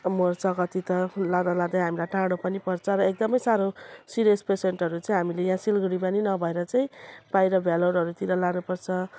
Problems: none marked